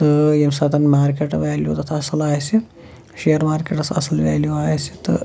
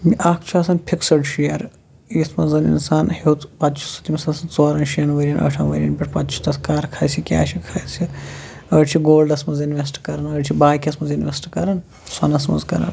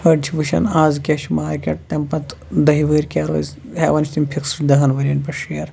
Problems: none marked